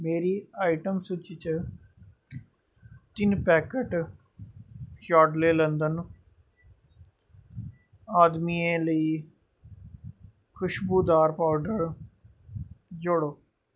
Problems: background sounds at intervals